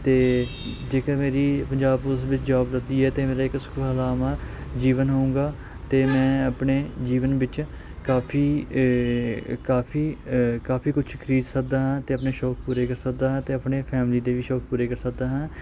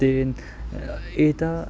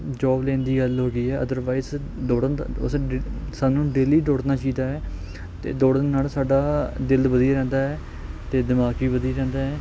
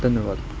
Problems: background sounds at intervals